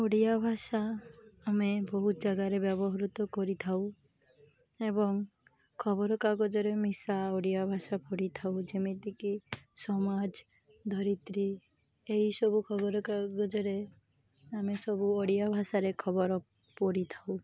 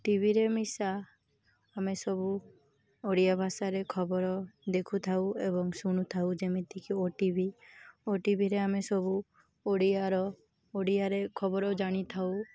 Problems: constant background noise, continuous background conversations